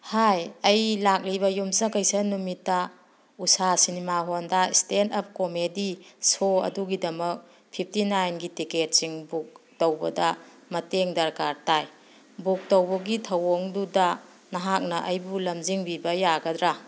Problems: none marked